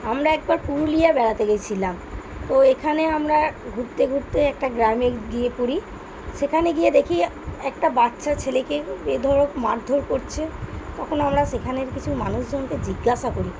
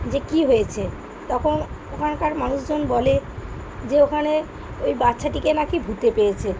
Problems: none marked